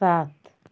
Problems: constant background noise